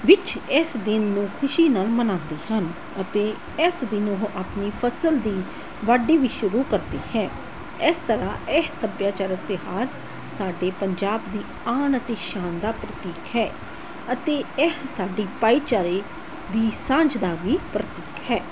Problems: none marked